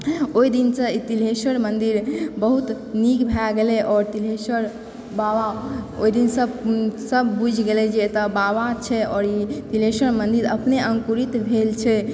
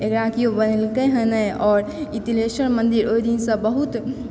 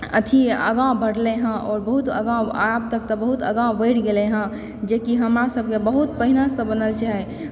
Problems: background sounds at intervals